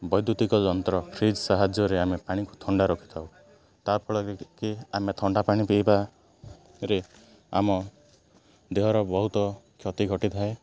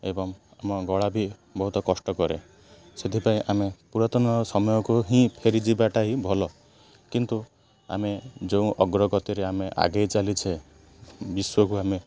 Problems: none marked